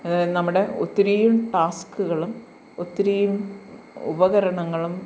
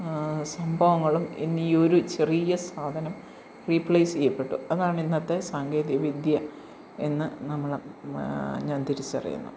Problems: constant background noise